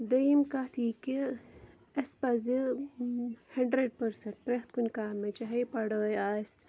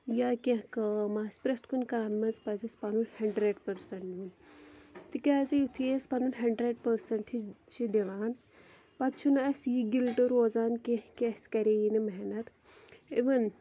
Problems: none marked